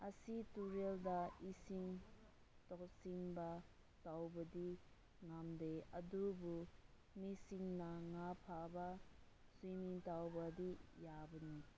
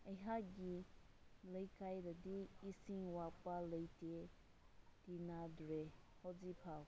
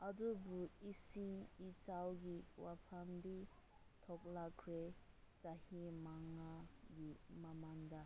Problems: low volume